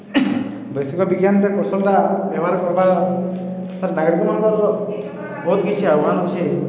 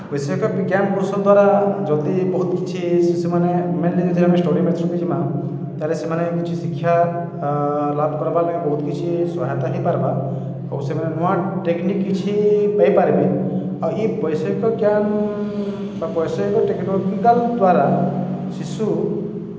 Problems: constant background noise, echo